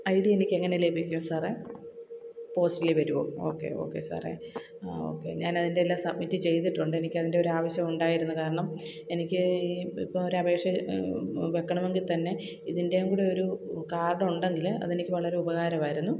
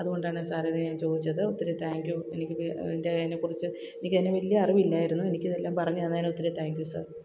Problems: none marked